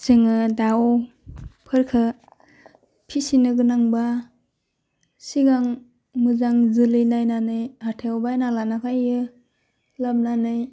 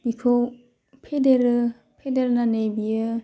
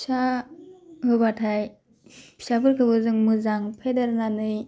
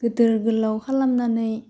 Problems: low volume